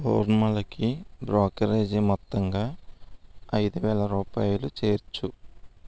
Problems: none marked